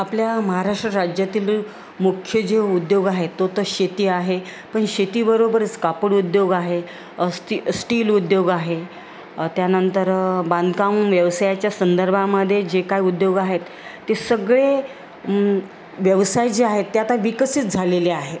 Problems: constant background noise